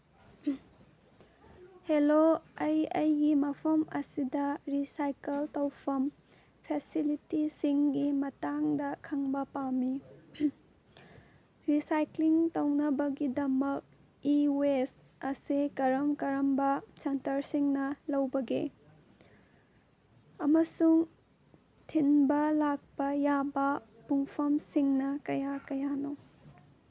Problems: background sounds at intervals